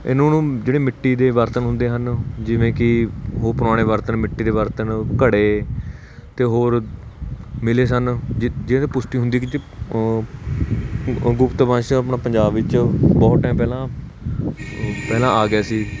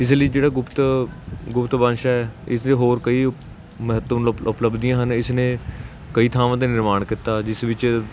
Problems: none marked